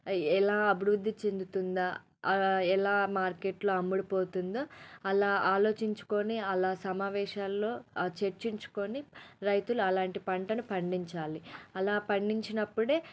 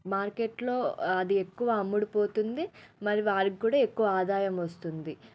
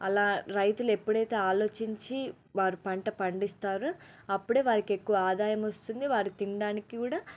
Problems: low volume